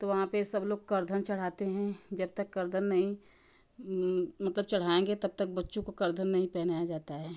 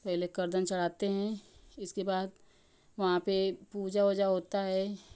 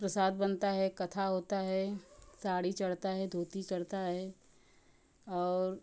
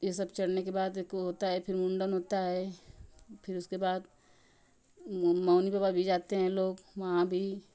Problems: constant background noise